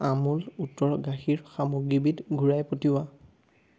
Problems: none marked